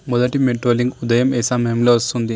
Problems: none marked